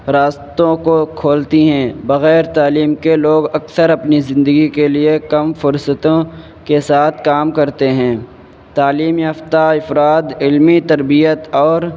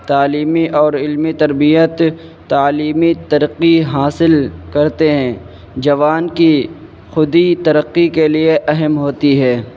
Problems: constant background noise